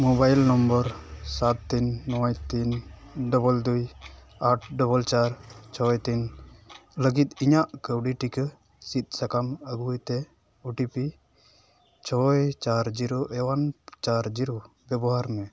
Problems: none marked